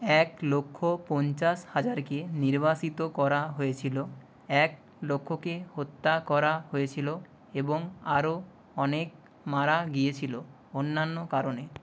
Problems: none marked